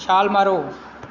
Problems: background sounds at intervals